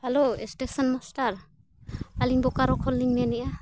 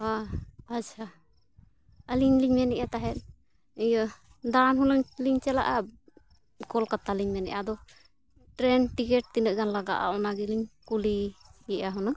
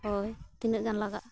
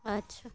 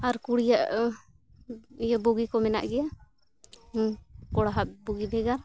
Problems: constant background noise, continuous background conversations